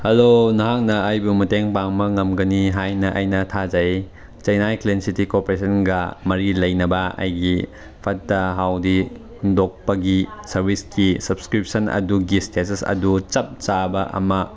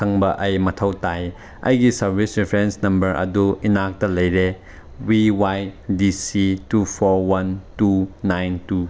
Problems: none marked